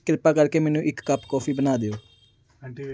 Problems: background sounds at intervals, background conversations at intervals